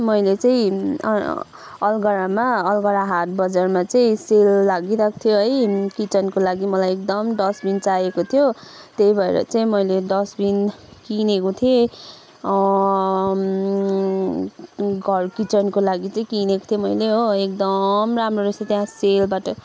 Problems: background sounds at intervals